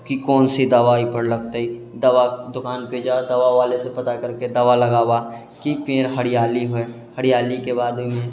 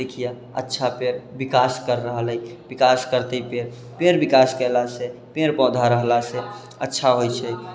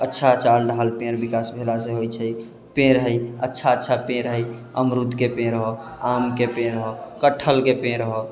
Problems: none marked